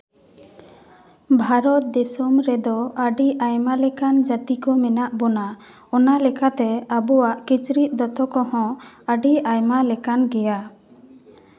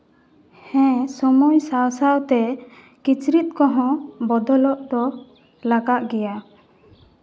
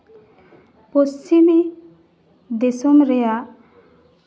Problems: background sounds at intervals, background conversations at intervals, echo